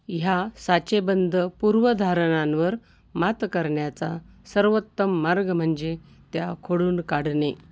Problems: constant background noise